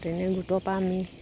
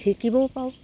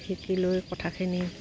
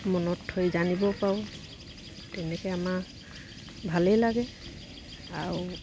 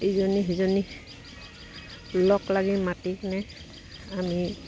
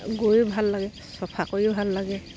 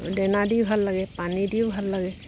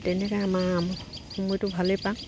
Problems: background sounds at intervals